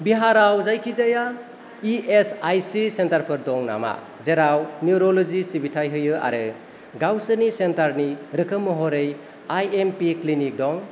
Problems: none marked